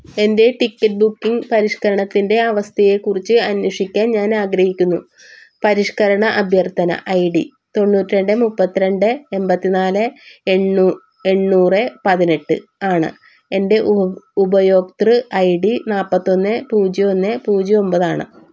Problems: none marked